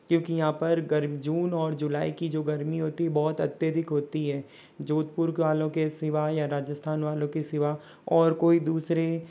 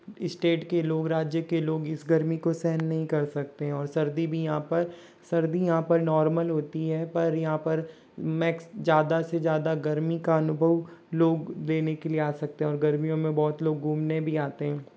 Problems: background sounds at intervals